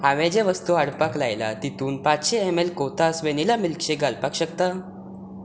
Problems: none marked